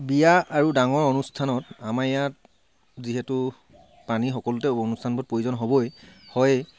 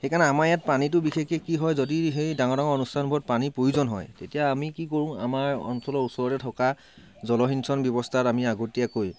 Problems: constant background noise